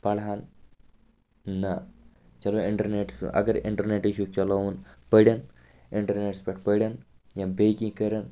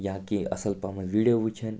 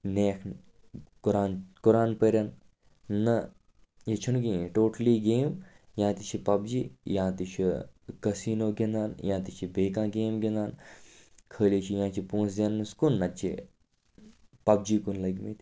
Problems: constant background noise